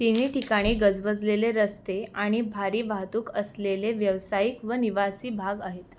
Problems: constant background noise